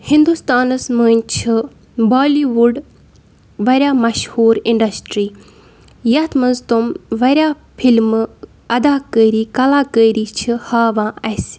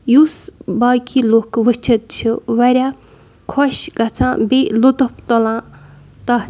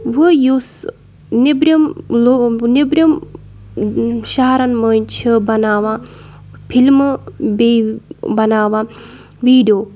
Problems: background sounds at intervals